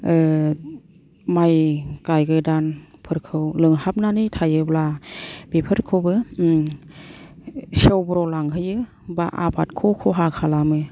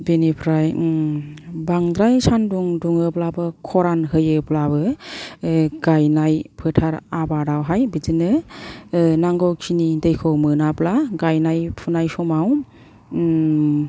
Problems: none marked